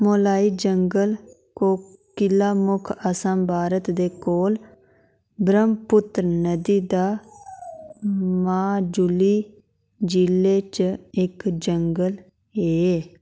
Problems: none marked